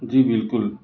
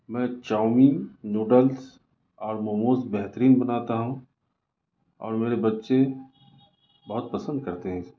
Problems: none marked